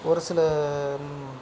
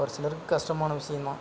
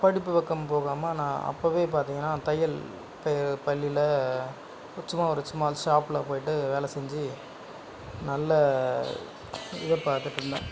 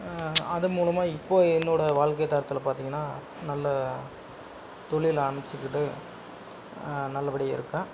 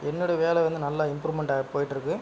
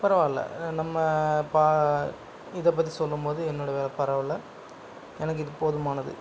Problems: background sounds at intervals, background conversations at intervals